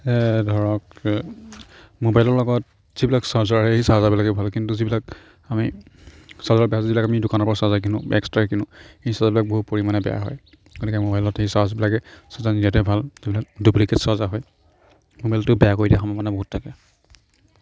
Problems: low volume